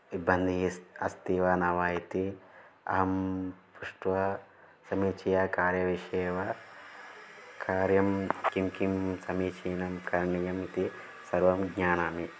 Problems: constant background noise